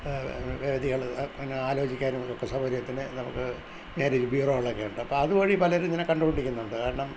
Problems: none marked